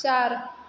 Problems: constant background noise